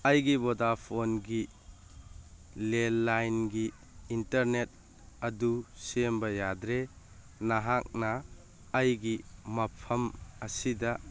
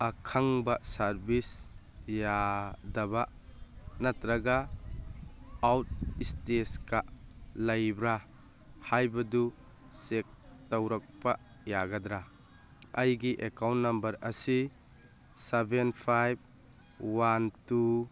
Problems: background sounds at intervals